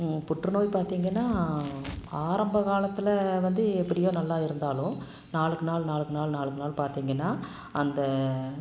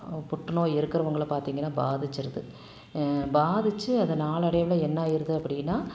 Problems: constant background noise